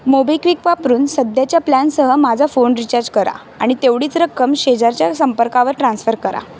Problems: constant background noise